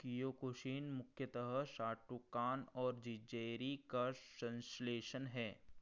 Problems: none marked